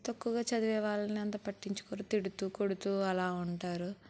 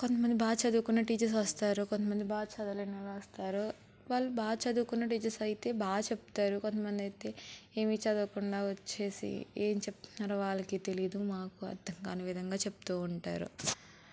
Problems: constant background noise